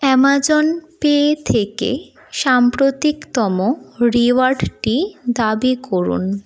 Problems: background sounds at intervals